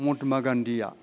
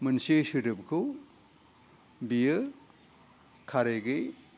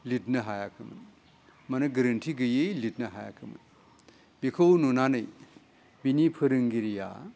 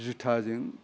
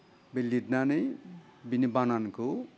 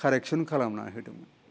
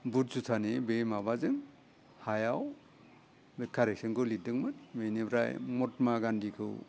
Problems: low volume